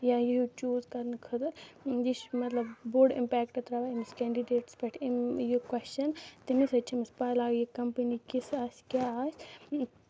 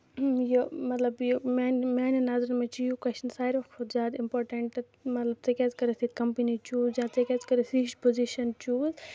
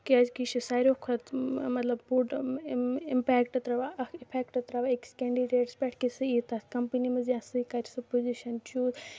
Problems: background sounds at intervals, low volume